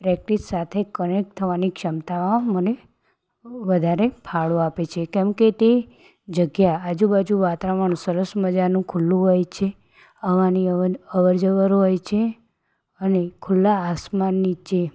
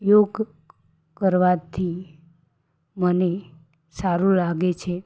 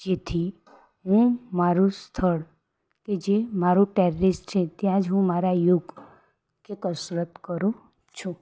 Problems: background sounds at intervals